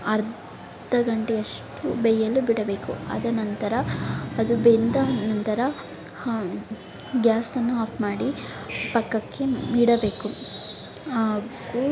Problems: background sounds at intervals